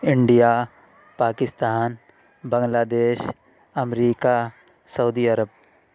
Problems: constant background noise